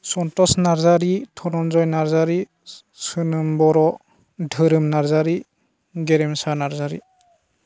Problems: constant background noise